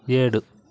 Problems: background sounds at intervals